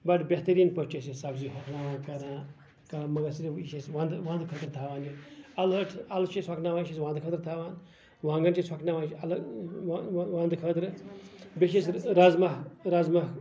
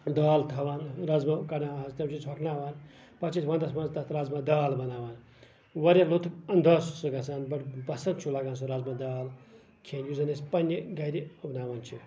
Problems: none marked